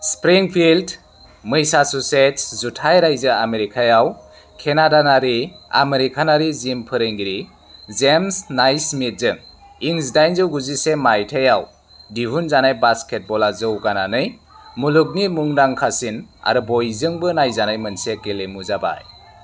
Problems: constant background noise